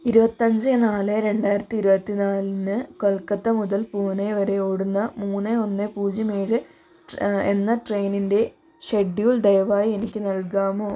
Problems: none marked